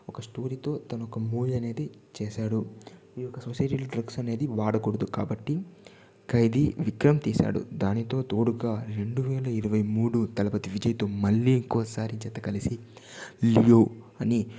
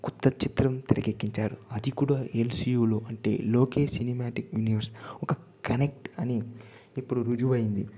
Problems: background sounds at intervals, low volume